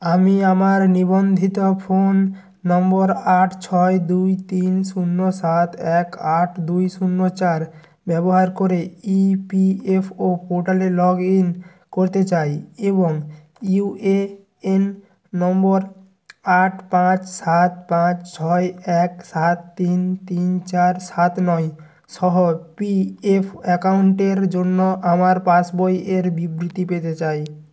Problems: none marked